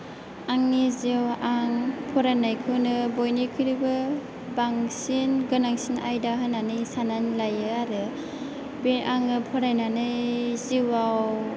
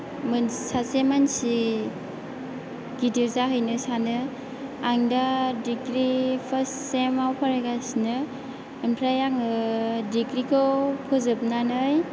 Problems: low volume